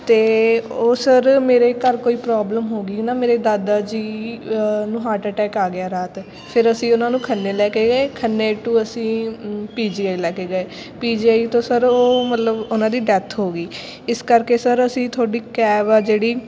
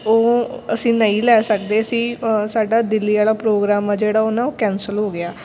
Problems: continuous background conversations